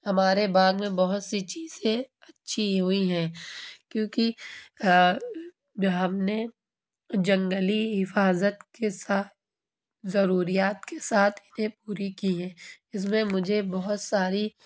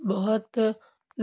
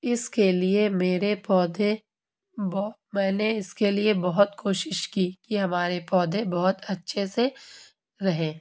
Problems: constant background noise